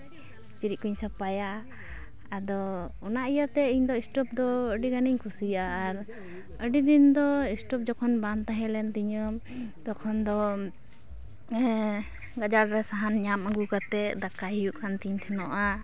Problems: background sounds at intervals, continuous background conversations